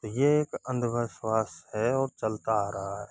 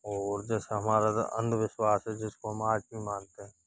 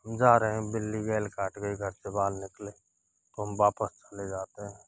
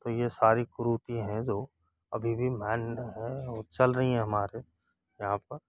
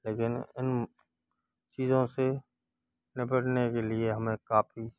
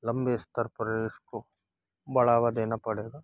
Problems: none marked